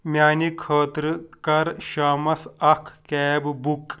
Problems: none marked